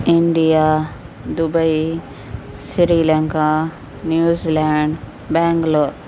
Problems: constant background noise, low volume